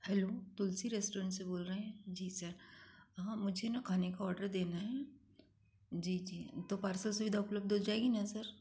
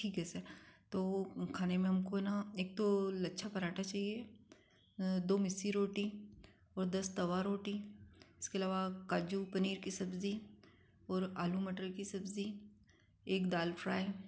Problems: constant background noise